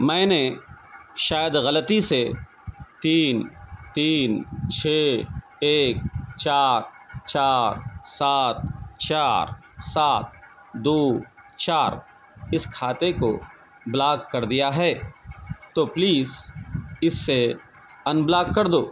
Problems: none marked